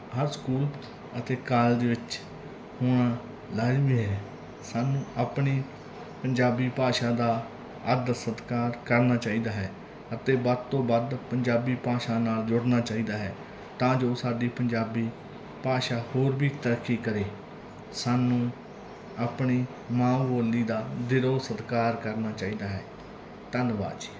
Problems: background conversations at intervals